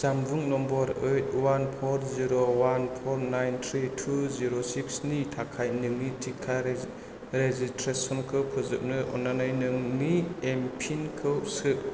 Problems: none marked